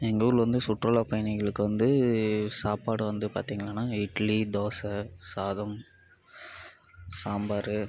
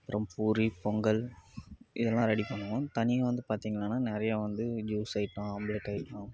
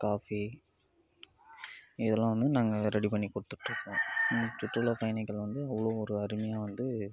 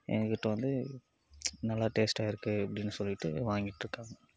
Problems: background sounds at intervals